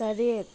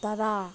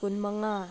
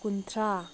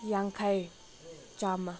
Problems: background sounds at intervals